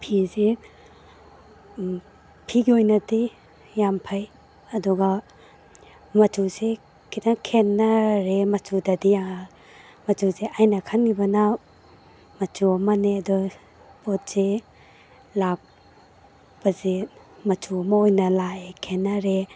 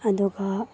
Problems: background sounds at intervals